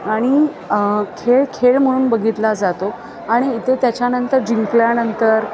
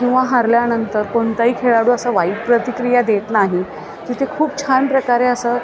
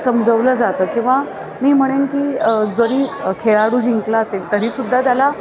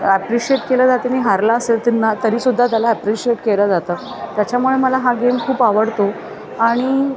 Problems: constant background noise, continuous background conversations